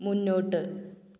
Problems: none marked